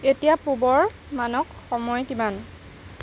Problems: constant background noise